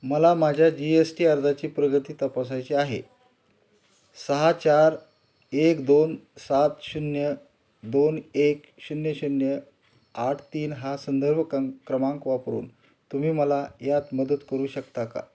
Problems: constant background noise, background conversations at intervals